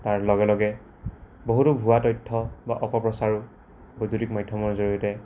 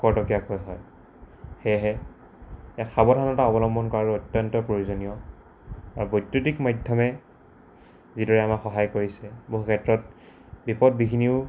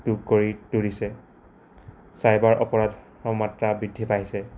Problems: constant background noise